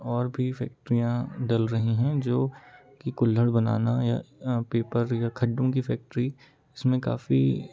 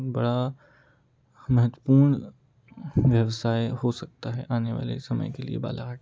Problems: continuous background conversations, low volume